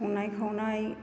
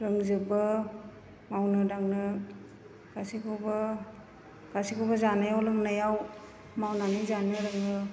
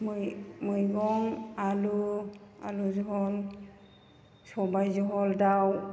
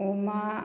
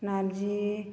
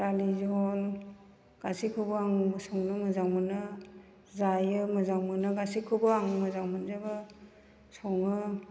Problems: none marked